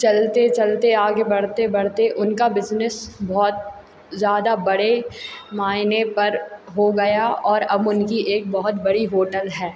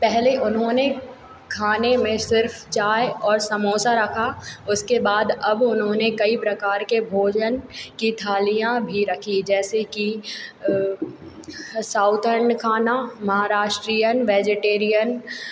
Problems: constant background noise